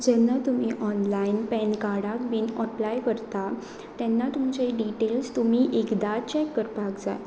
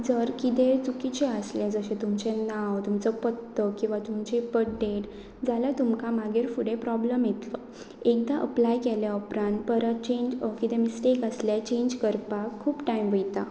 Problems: none marked